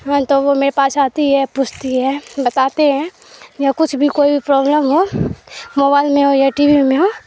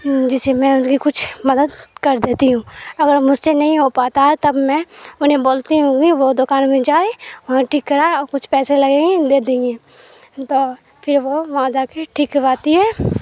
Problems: constant background noise